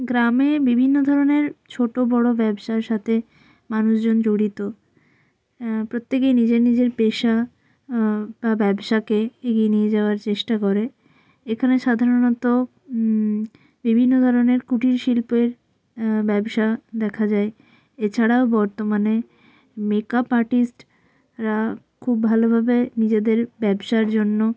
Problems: background sounds at intervals